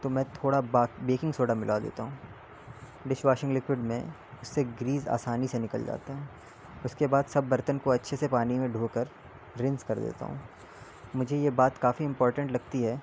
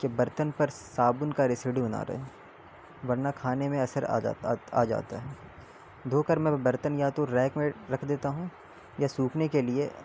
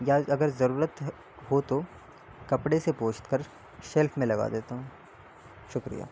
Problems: constant background noise